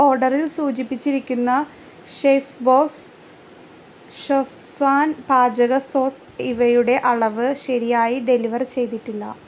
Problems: constant background noise